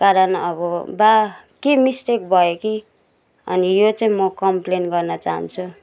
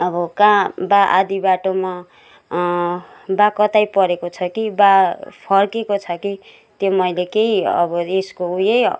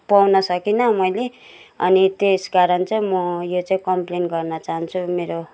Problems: none marked